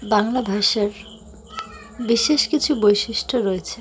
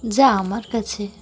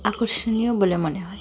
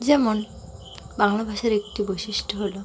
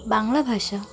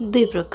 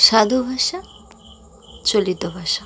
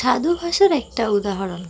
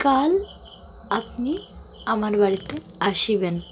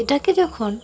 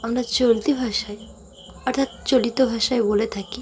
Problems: constant background noise, continuous background conversations